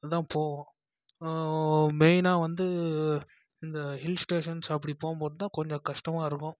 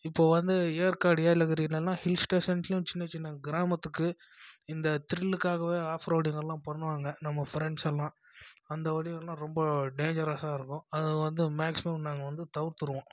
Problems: constant background noise, low volume